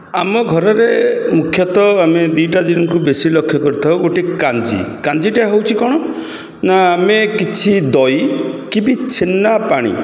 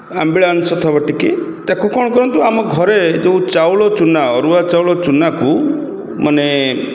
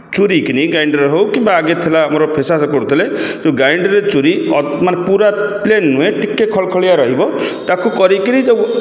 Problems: none marked